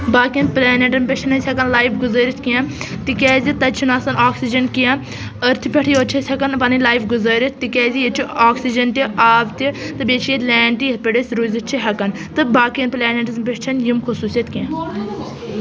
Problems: constant background noise, background conversations at intervals